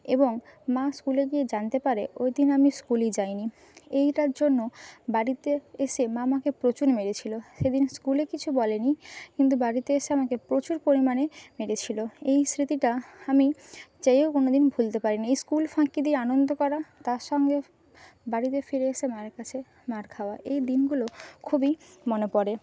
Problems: background sounds at intervals